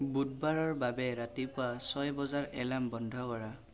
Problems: constant background noise